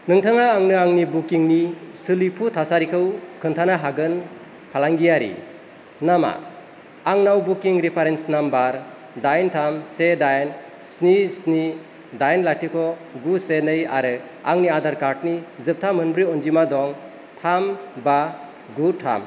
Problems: none marked